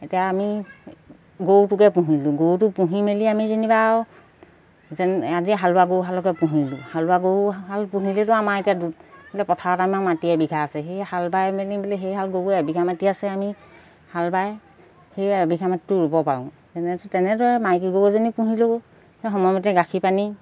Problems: background sounds at intervals